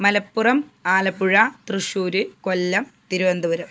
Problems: background sounds at intervals